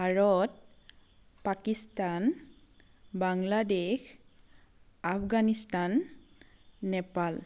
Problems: none marked